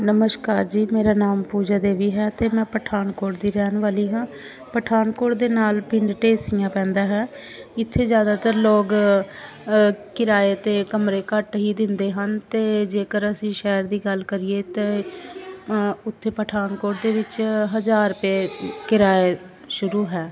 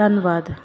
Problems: background sounds at intervals